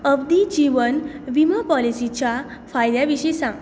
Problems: none marked